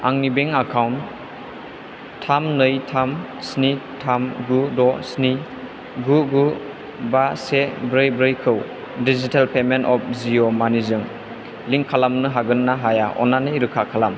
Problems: constant background noise